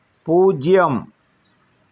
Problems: none marked